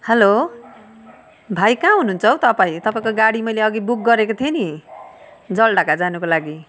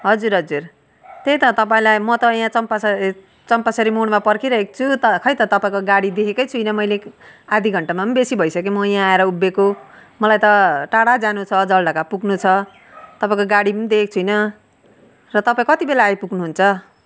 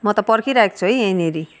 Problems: background sounds at intervals, background conversations at intervals